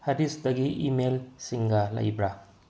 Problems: low volume